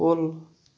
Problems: none marked